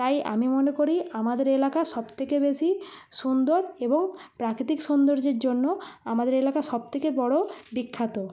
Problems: constant background noise